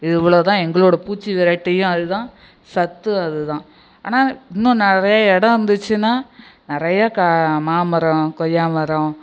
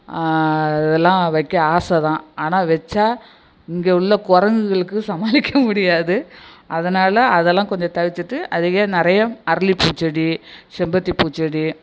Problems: background sounds at intervals, echo